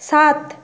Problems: none marked